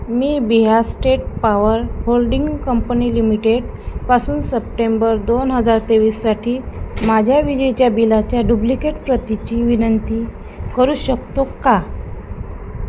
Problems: constant background noise